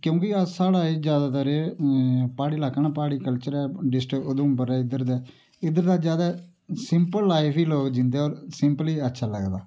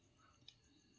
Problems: background sounds at intervals